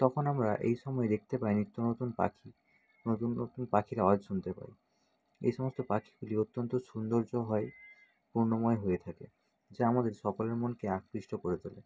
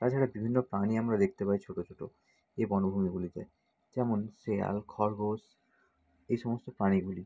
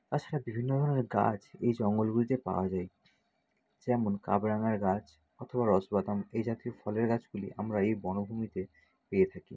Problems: none marked